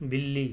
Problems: constant background noise